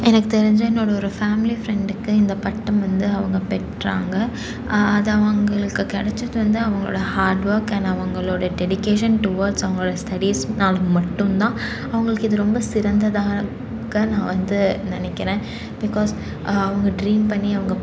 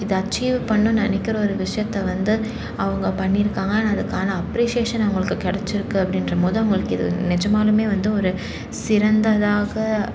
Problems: constant background noise